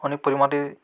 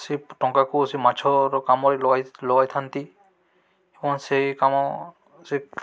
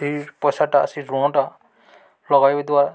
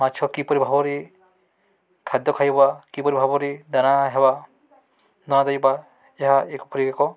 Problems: none marked